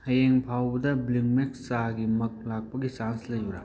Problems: none marked